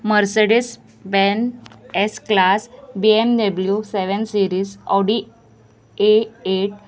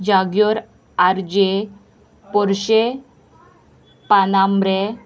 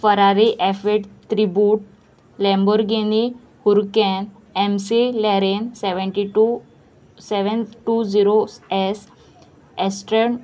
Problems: constant background noise, continuous background conversations